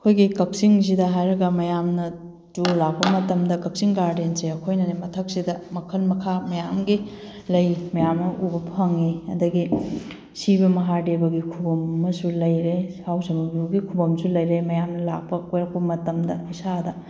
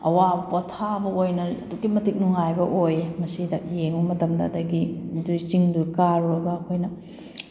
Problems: background sounds at intervals